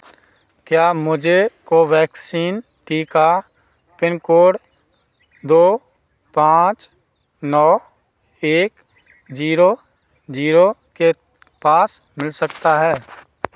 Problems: background sounds at intervals